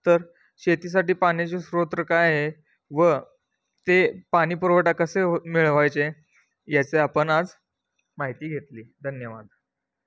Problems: none marked